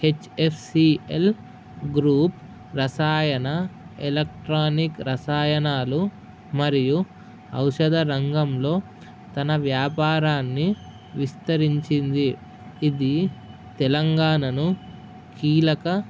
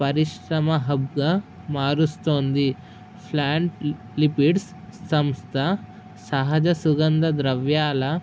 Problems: none marked